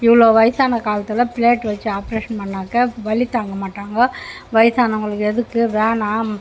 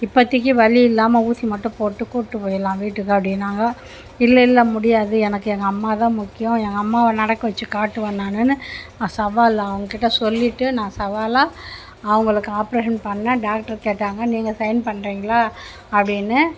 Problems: constant background noise